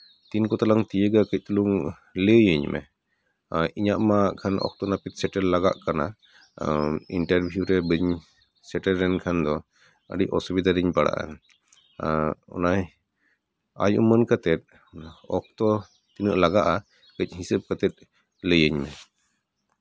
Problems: none marked